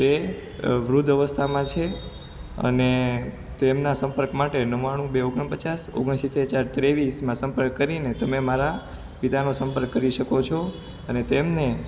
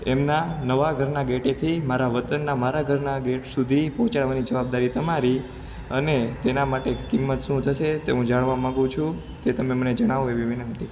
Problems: constant background noise